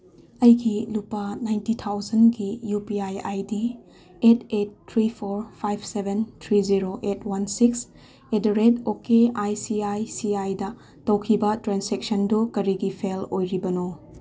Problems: none marked